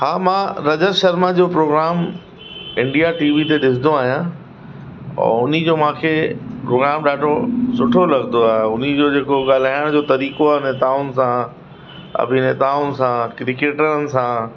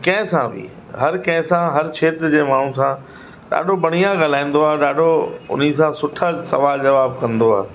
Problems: constant background noise